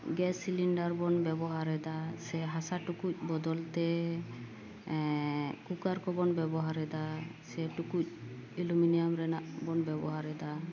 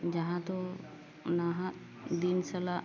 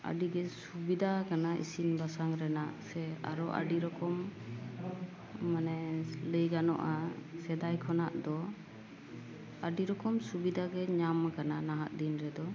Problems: none marked